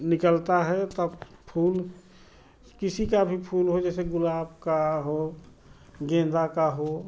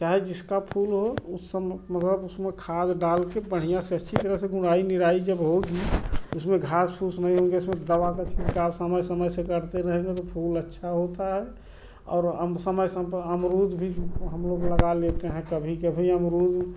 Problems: none marked